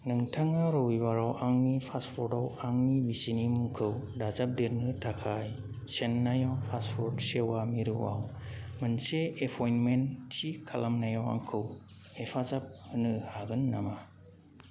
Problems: constant background noise